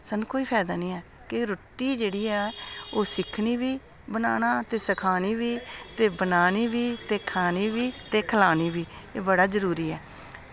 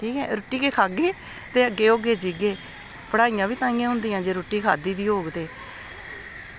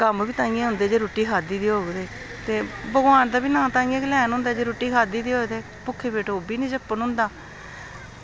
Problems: constant background noise